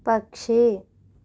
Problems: none marked